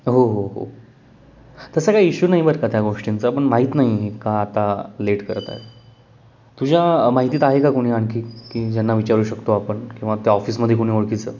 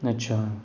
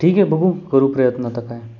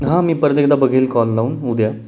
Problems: none marked